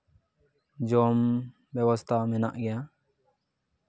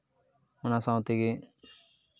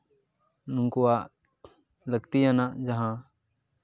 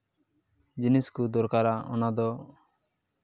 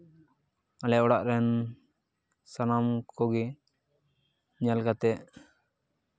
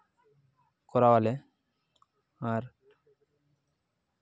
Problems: background sounds at intervals